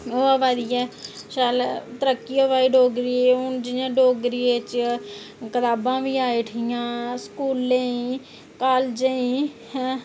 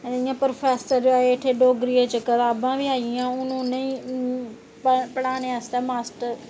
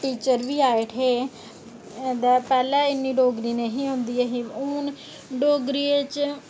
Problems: none marked